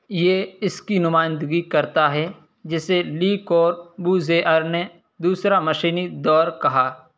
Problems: none marked